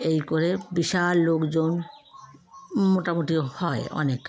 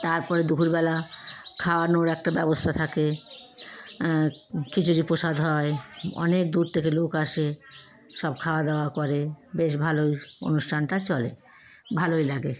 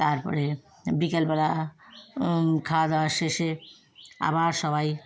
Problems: none marked